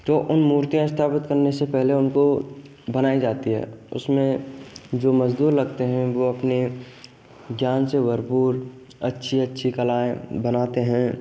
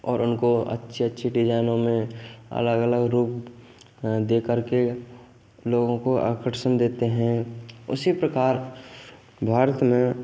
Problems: none marked